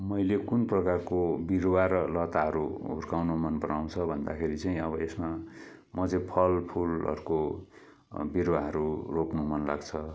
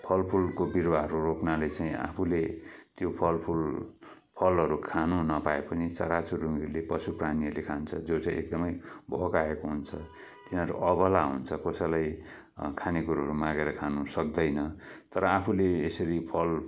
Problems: none marked